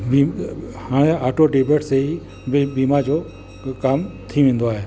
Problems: background conversations at intervals, echo